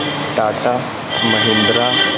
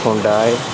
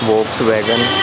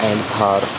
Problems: constant background noise